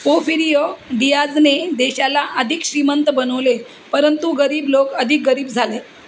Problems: constant background noise